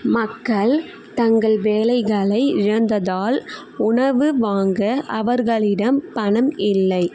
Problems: constant background noise